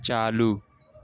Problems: constant background noise